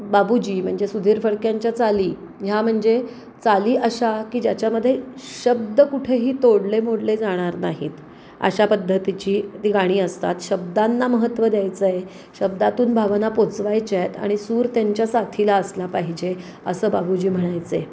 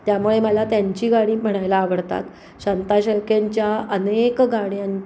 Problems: none marked